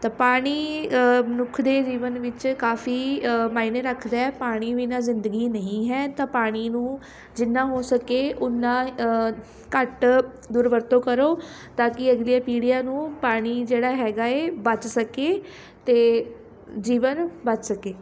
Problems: none marked